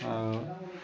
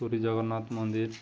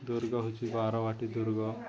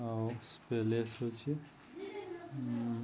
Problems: constant background noise, continuous background conversations